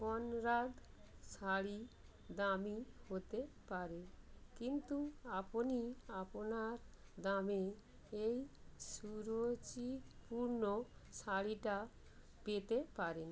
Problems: constant background noise